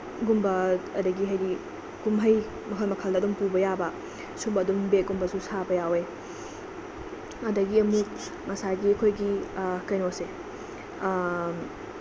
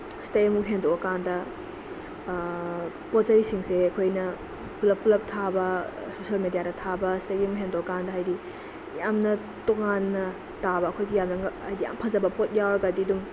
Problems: constant background noise